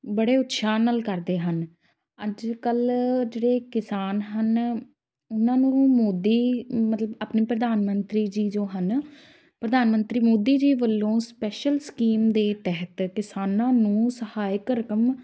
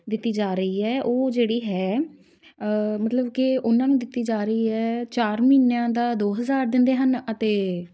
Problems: none marked